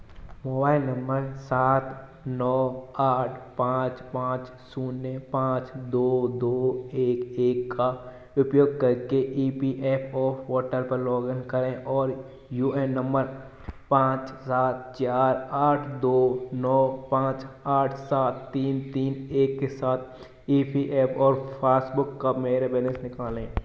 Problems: constant background noise